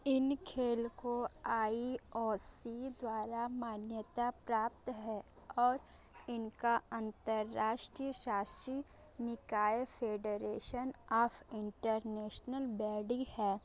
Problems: constant background noise, background conversations at intervals